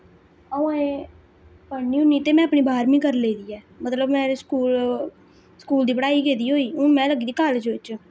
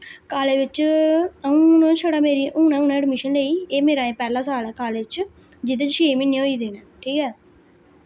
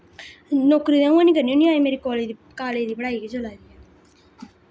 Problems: constant background noise